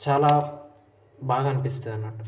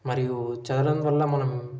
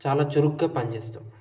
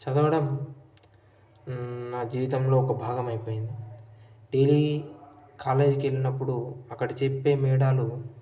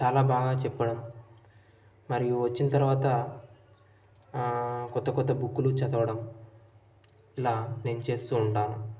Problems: none marked